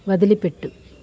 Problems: constant background noise